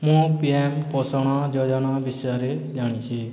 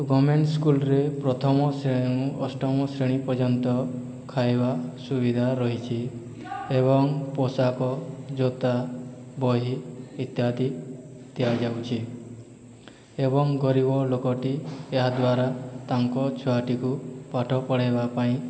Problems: background sounds at intervals, background conversations at intervals